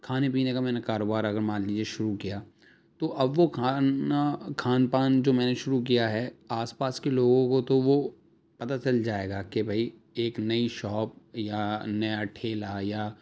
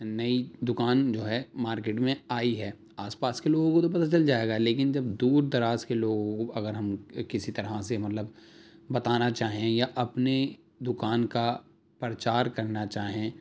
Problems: none marked